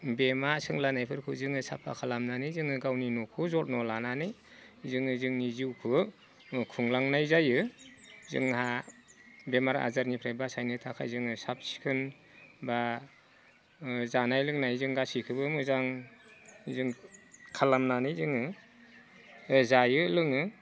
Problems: none marked